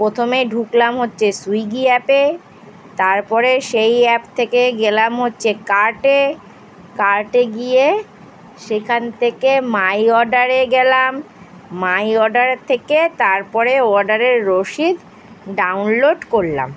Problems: constant background noise